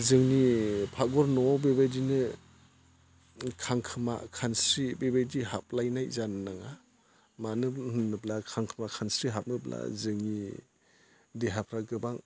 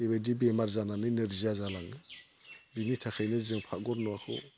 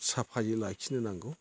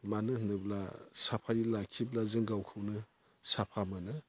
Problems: none marked